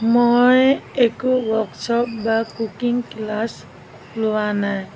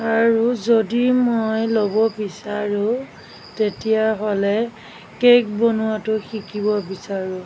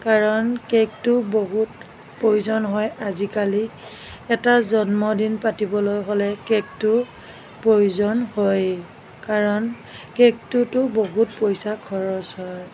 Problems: background sounds at intervals